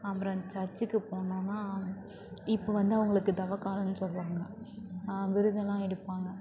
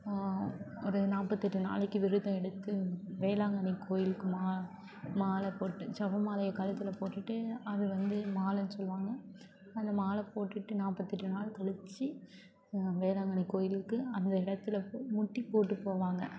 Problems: constant background noise, continuous background conversations